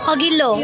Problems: constant background noise